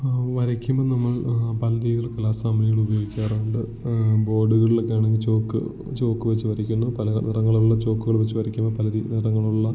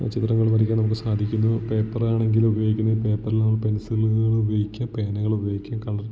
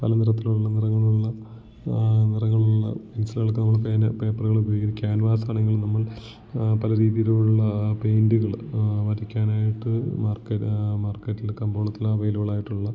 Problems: background sounds at intervals, low volume